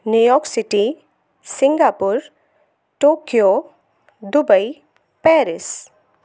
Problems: constant background noise